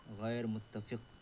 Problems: low volume